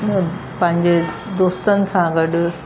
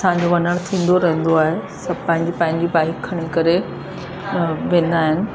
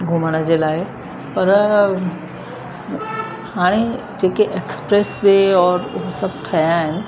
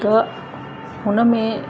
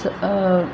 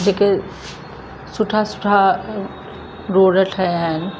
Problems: constant background noise, echo